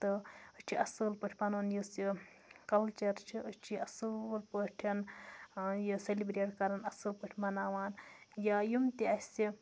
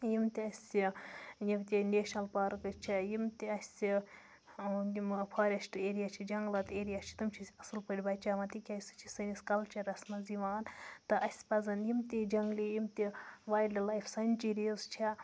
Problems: constant background noise